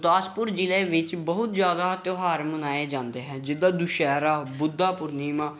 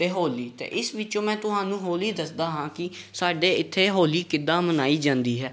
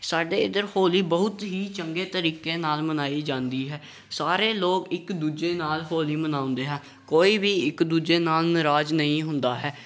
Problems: none marked